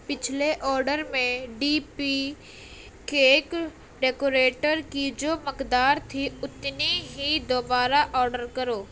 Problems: constant background noise